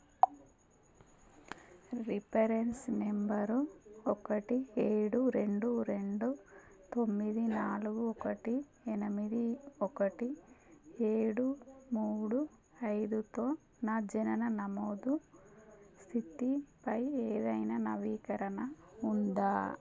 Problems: constant background noise